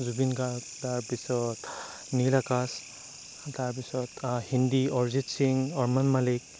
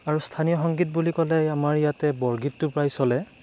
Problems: none marked